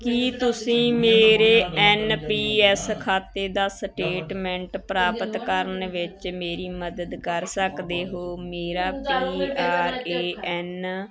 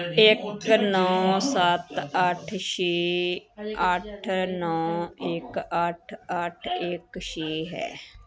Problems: continuous background conversations